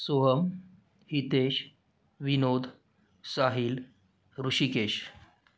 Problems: none marked